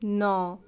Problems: constant background noise